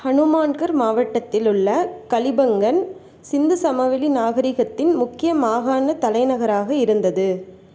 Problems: none marked